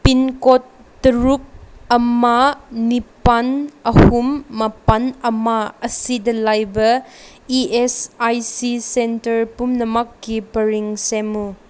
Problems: none marked